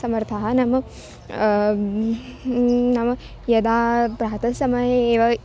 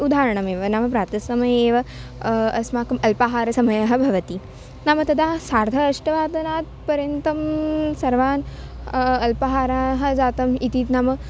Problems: constant background noise